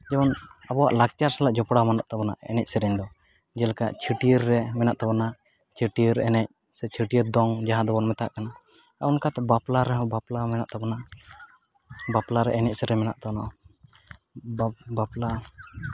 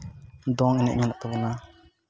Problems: background sounds at intervals, background conversations at intervals